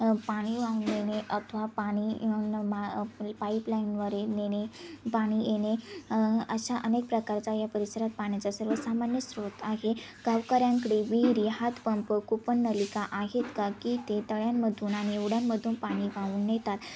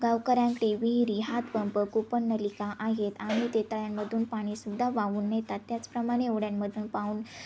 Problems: constant background noise, background conversations at intervals